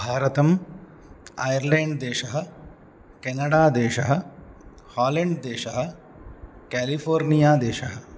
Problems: constant background noise